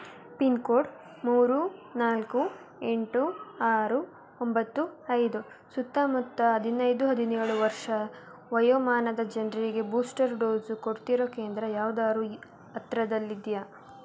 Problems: constant background noise